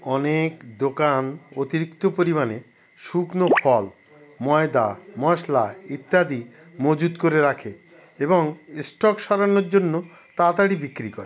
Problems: background sounds at intervals